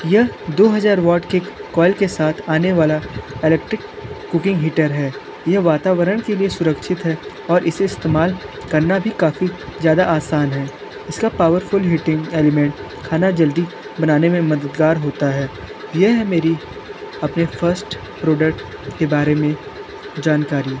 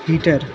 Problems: constant background noise